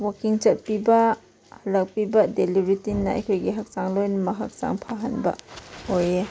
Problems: background sounds at intervals